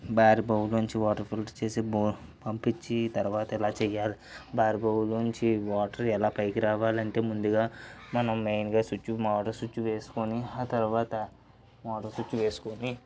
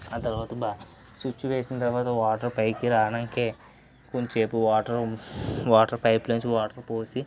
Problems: background sounds at intervals, low volume